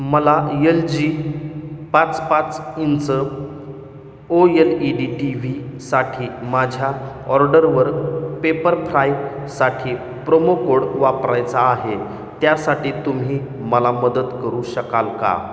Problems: background sounds at intervals, echo